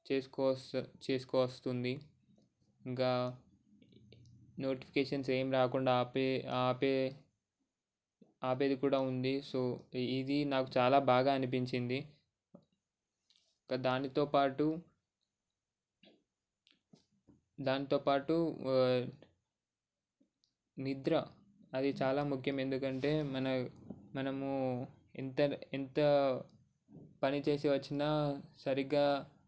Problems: none marked